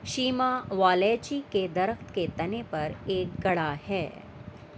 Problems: constant background noise